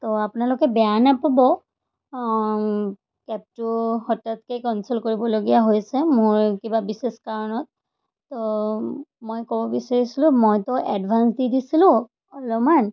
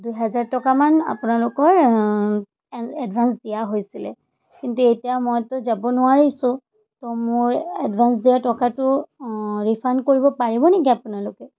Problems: none marked